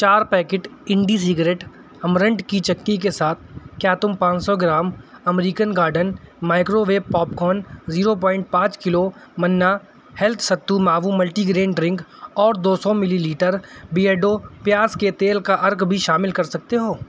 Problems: none marked